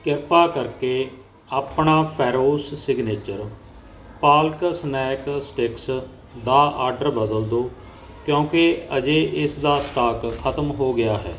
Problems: background sounds at intervals